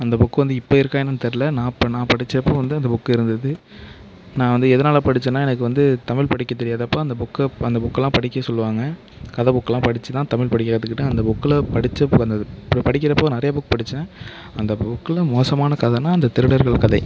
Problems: background sounds at intervals